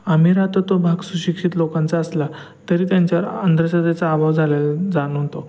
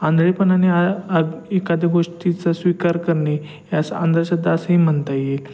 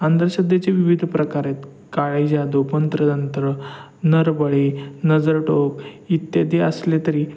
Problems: background sounds at intervals